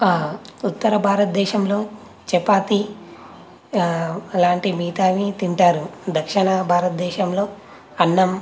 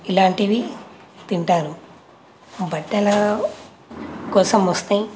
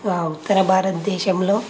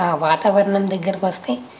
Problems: constant background noise, background conversations at intervals